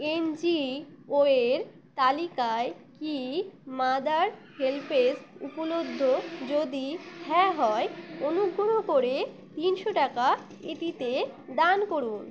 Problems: constant background noise